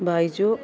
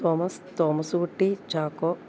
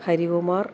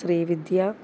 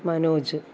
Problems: low volume